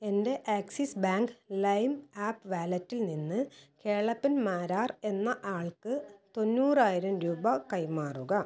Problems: none marked